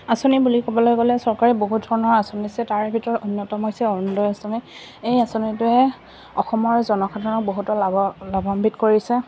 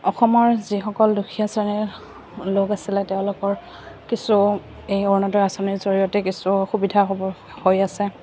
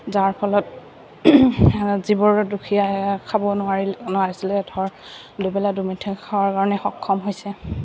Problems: none marked